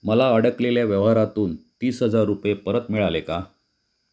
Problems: none marked